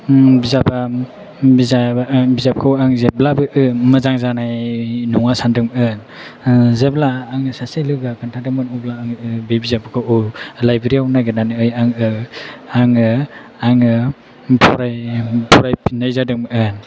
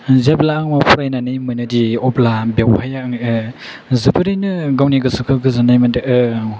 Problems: background sounds at intervals